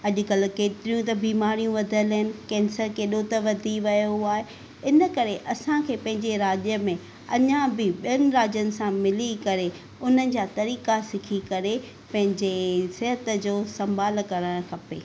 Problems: none marked